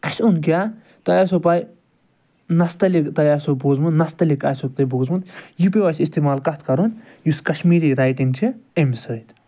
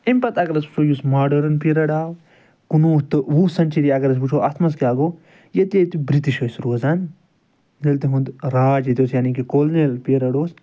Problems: background sounds at intervals